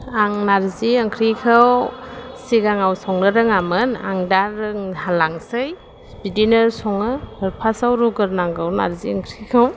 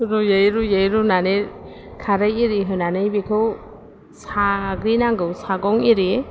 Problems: none marked